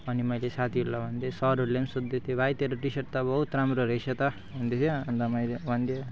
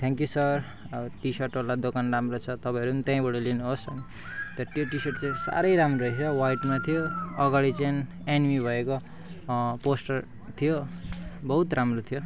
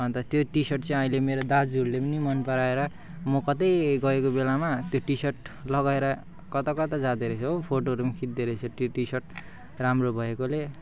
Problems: background sounds at intervals